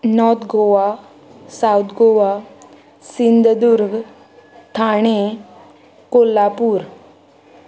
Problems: constant background noise